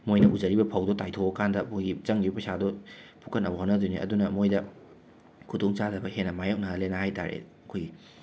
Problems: none marked